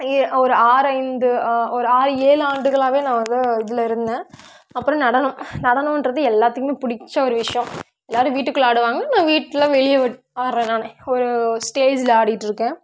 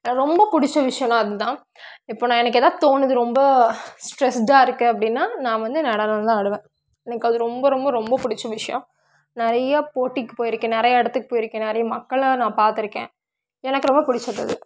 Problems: background sounds at intervals